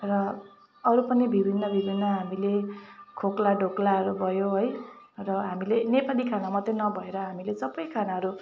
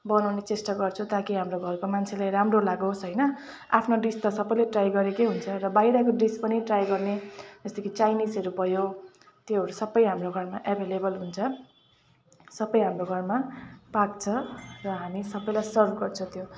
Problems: constant background noise, continuous background conversations